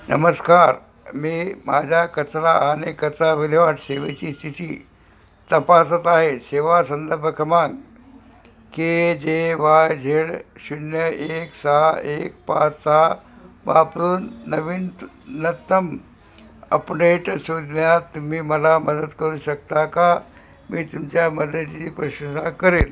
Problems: none marked